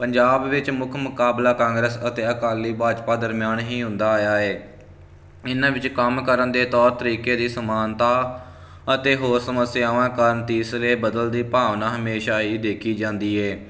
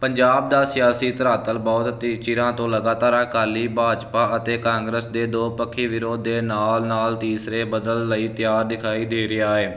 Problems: constant background noise